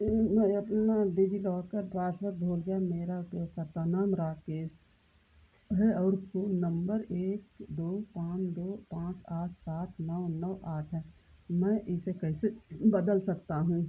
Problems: constant background noise, low volume